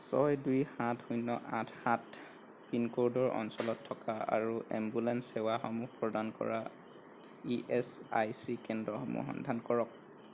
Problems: none marked